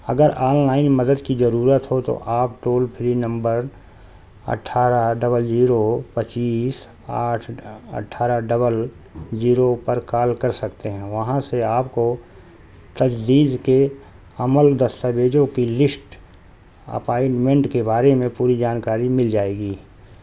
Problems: constant background noise